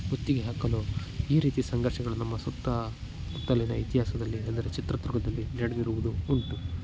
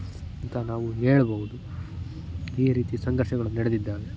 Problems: constant background noise, low volume